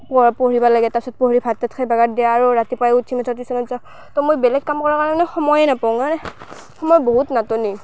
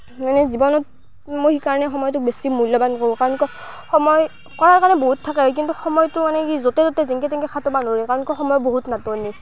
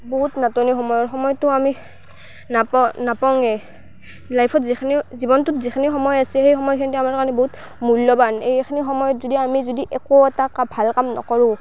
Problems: constant background noise